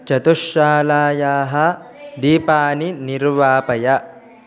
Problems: background sounds at intervals